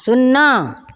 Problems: none marked